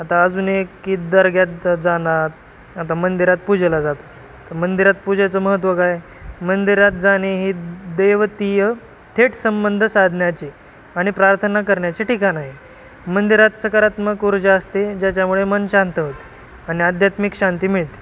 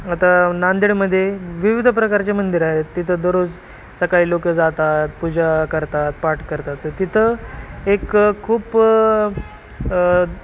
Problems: constant background noise